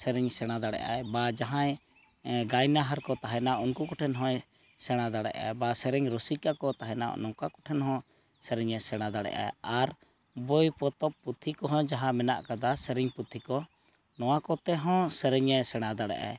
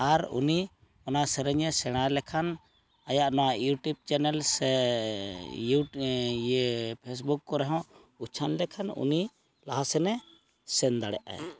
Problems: background sounds at intervals